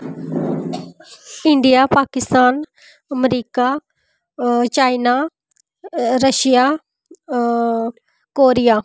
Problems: background sounds at intervals